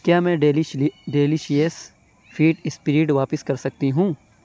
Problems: constant background noise